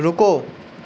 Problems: constant background noise